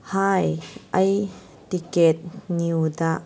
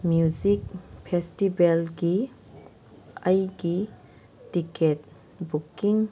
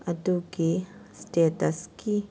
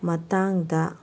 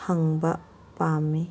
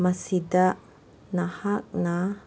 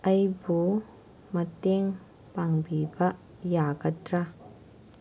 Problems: none marked